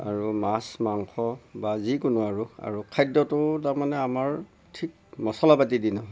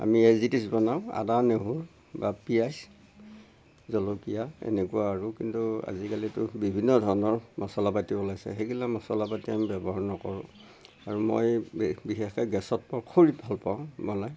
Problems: background sounds at intervals, low volume